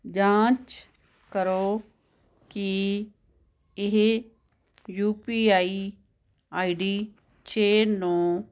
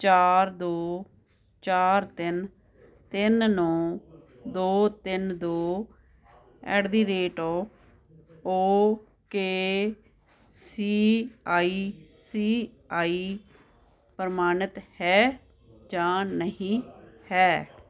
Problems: constant background noise